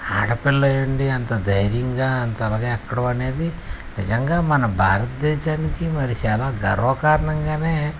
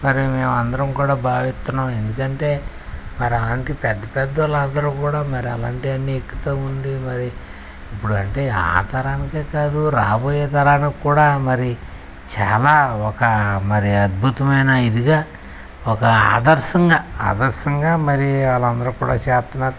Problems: none marked